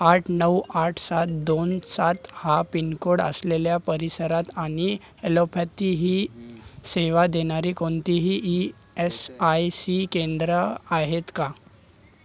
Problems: constant background noise, background conversations at intervals